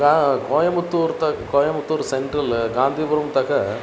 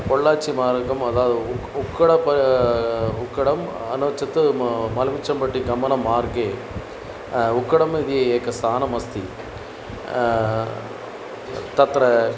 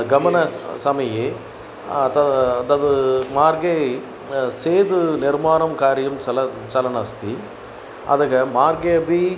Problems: constant background noise